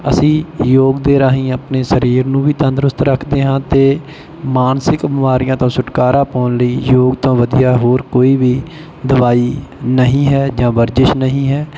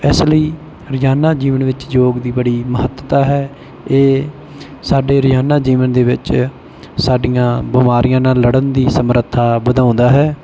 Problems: none marked